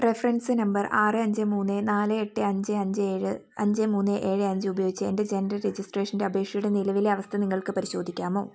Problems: none marked